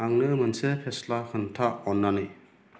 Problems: constant background noise